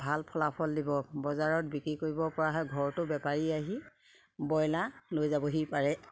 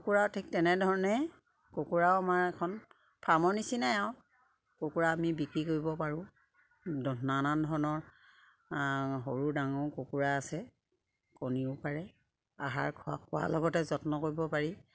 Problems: constant background noise, background conversations at intervals